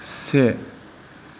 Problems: constant background noise